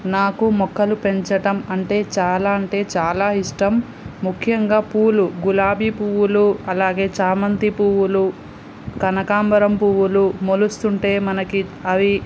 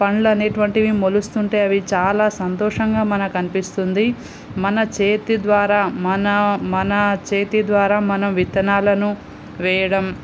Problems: constant background noise